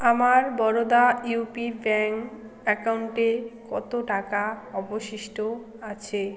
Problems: constant background noise